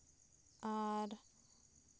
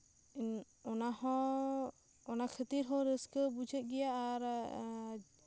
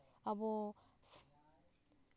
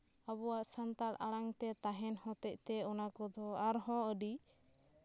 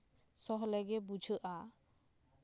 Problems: constant background noise